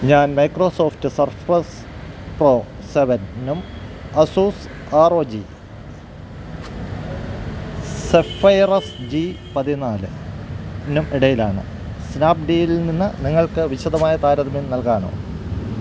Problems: constant background noise